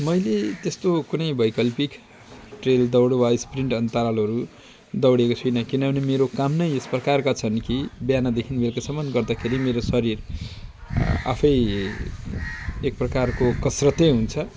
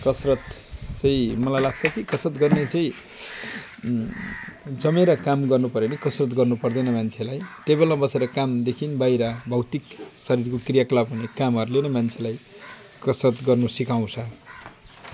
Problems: constant background noise